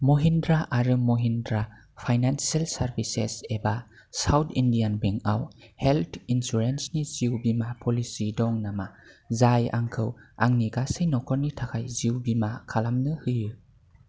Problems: none marked